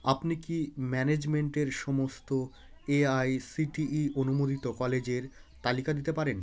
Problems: background sounds at intervals, continuous background conversations